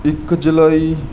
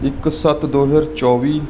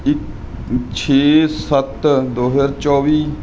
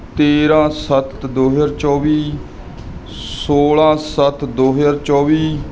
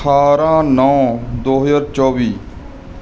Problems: constant background noise